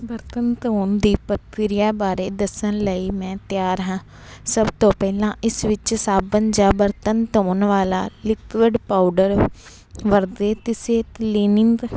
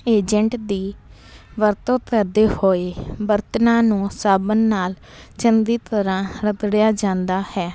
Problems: none marked